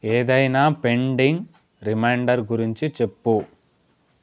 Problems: constant background noise